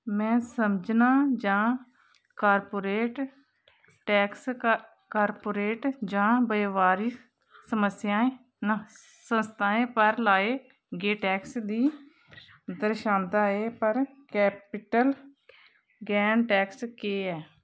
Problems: constant background noise, background conversations at intervals